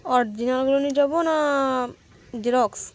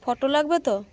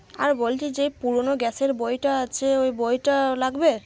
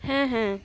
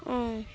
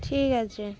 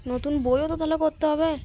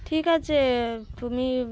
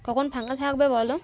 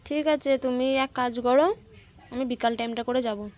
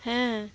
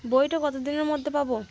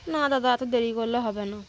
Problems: constant background noise, background conversations at intervals